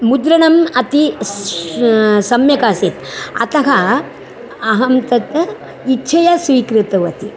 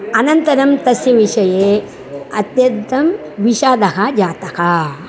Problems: none marked